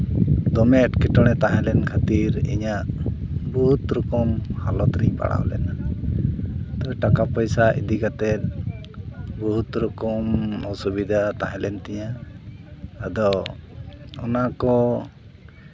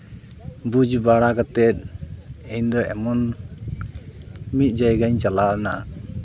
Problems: constant background noise